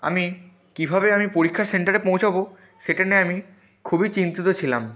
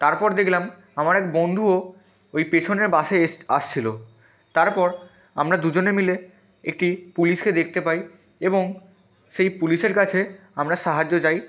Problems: constant background noise, continuous background conversations